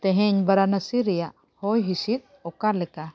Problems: none marked